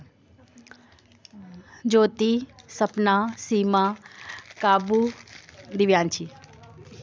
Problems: constant background noise